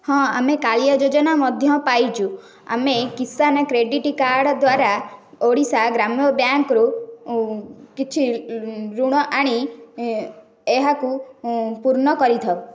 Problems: none marked